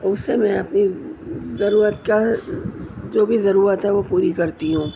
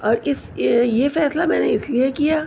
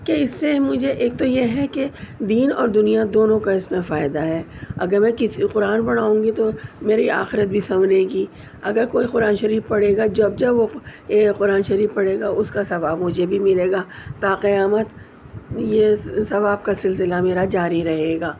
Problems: none marked